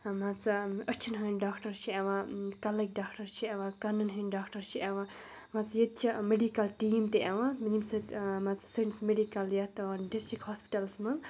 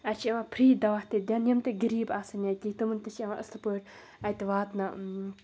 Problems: none marked